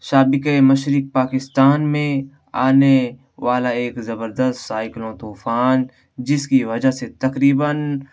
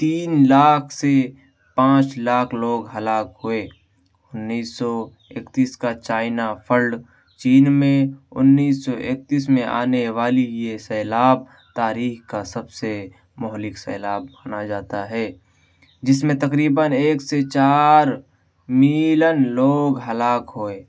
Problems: none marked